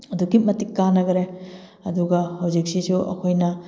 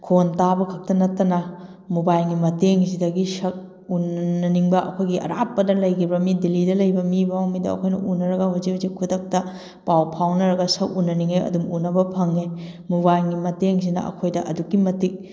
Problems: none marked